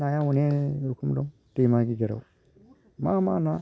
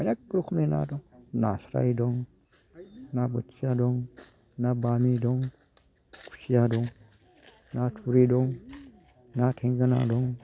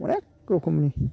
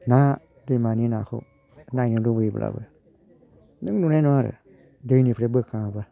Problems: low volume